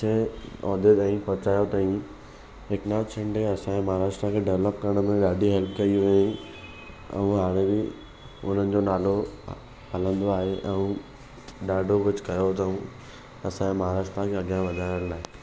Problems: none marked